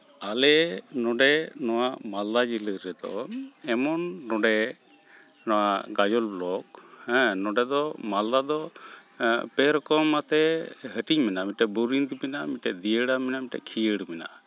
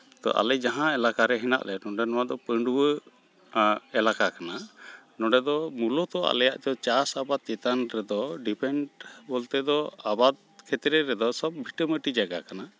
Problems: none marked